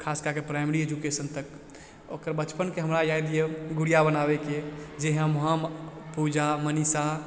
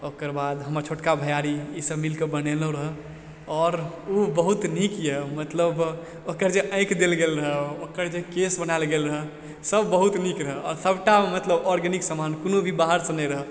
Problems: background conversations at intervals